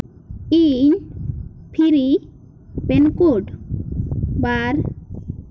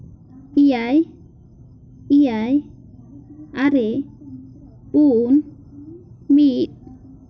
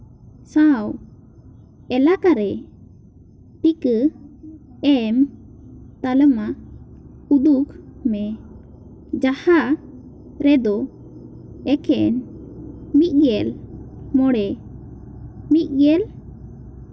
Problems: constant background noise, background conversations at intervals